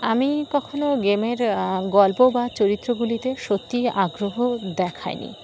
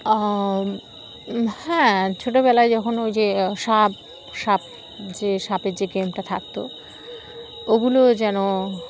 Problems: constant background noise